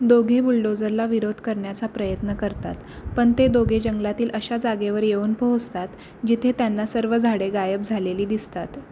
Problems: constant background noise